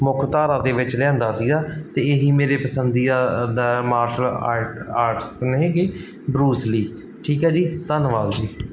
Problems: background sounds at intervals